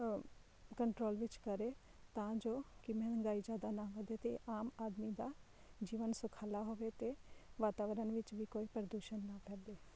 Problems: low volume